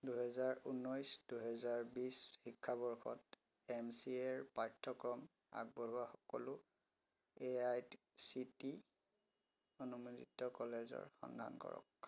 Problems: constant background noise, low volume